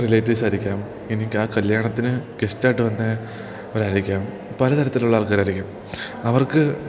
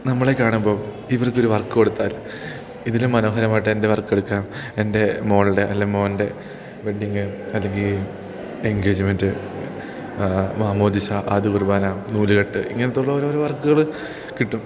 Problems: none marked